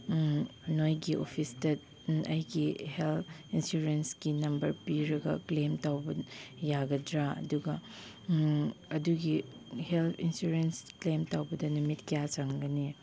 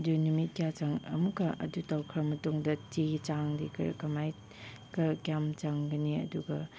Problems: none marked